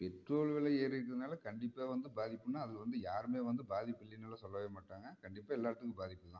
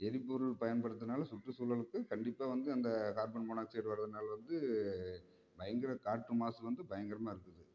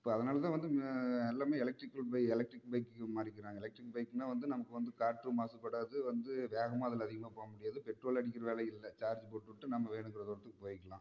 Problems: low volume